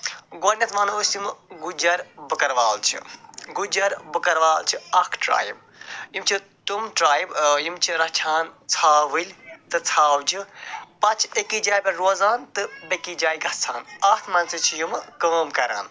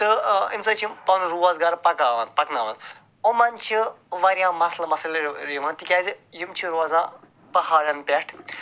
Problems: none marked